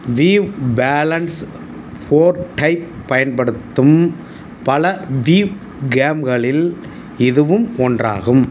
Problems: constant background noise